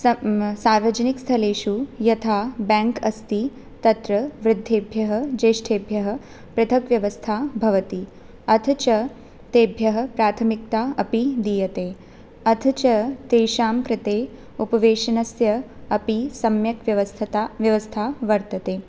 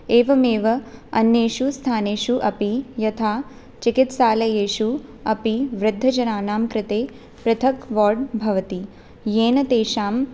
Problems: none marked